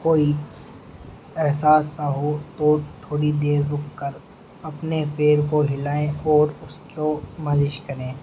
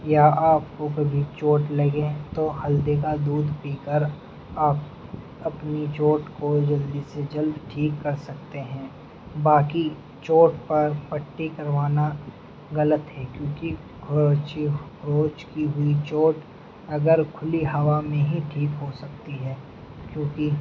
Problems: constant background noise